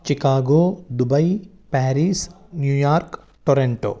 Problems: constant background noise, background conversations at intervals